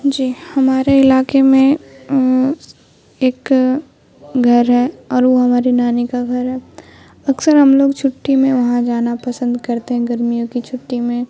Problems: constant background noise